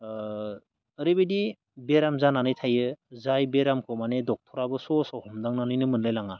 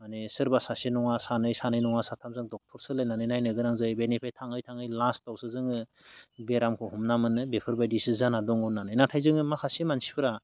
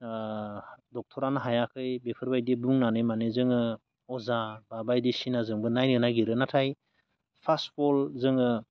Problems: none marked